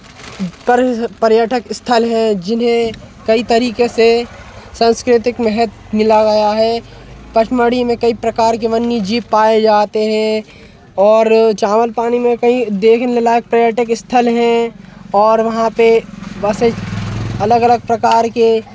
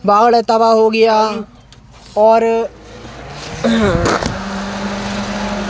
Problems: constant background noise